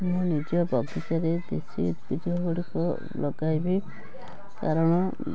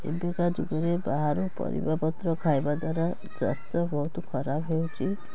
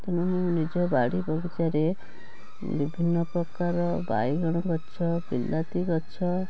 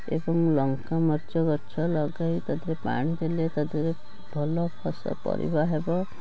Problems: constant background noise